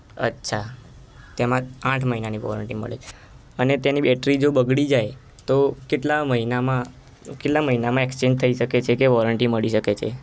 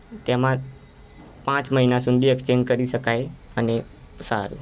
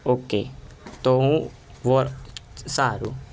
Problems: constant background noise